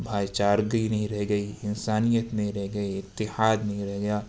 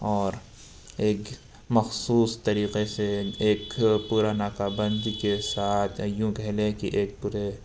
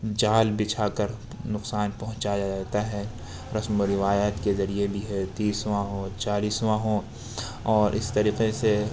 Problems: constant background noise